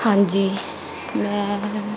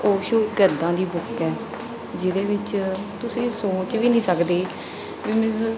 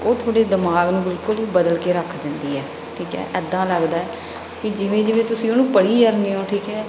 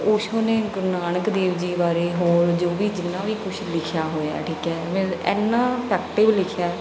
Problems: background sounds at intervals, background conversations at intervals